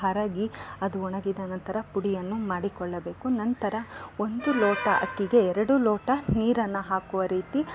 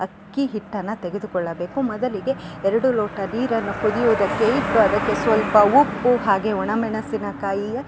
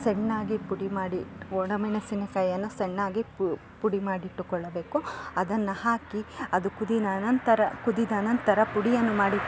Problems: background sounds at intervals